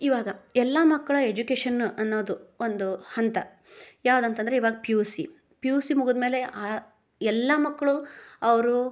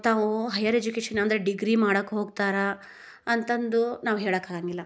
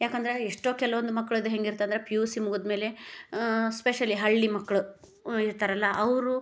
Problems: none marked